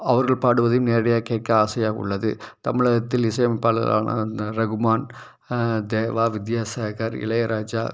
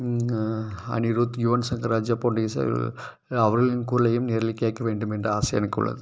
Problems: none marked